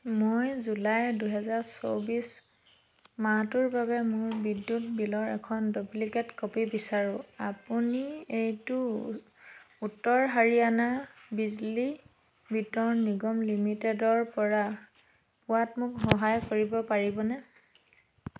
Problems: none marked